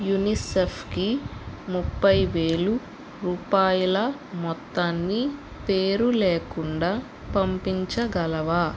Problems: constant background noise